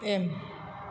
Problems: constant background noise